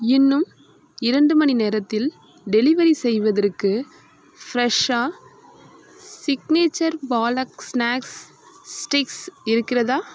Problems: constant background noise